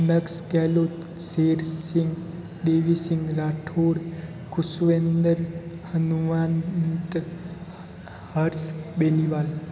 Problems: constant background noise